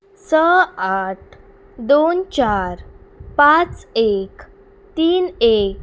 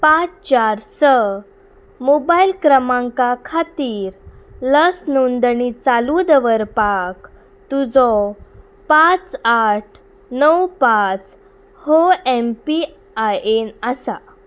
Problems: none marked